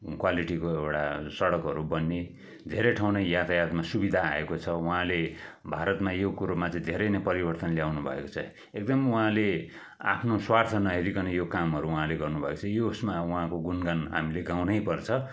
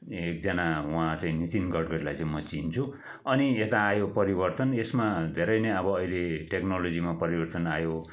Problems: background conversations at intervals